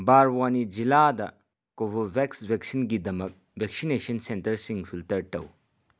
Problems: background sounds at intervals